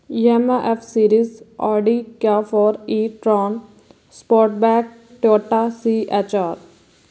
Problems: background sounds at intervals